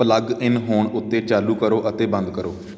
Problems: background sounds at intervals